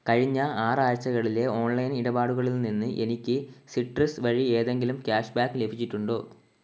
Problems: constant background noise